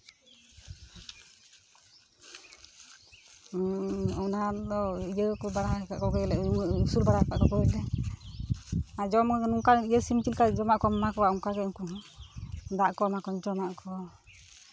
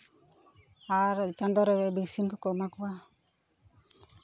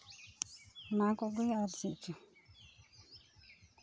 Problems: constant background noise, continuous background conversations